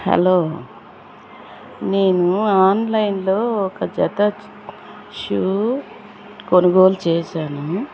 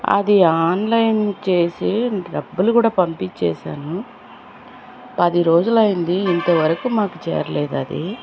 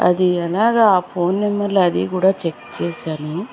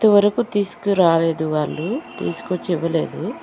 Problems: constant background noise